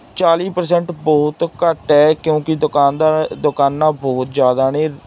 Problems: background sounds at intervals